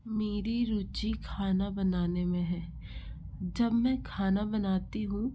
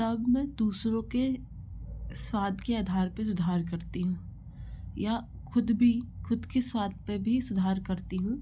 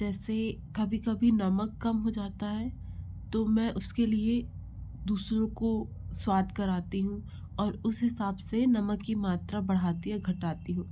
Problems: low volume